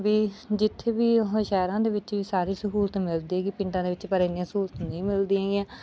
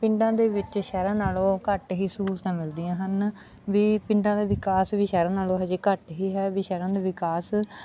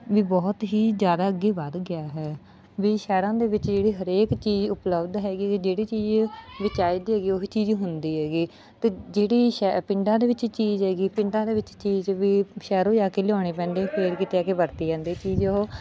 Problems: none marked